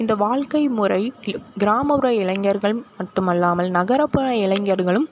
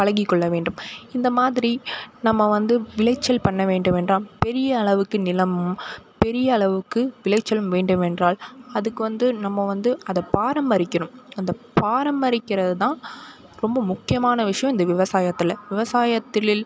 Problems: constant background noise